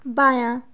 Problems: none marked